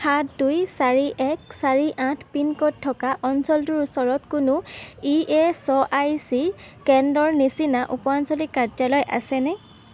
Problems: constant background noise